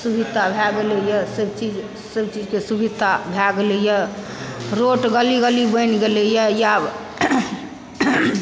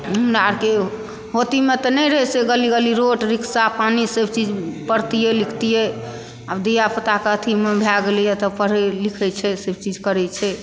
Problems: background sounds at intervals